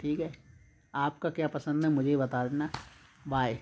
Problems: constant background noise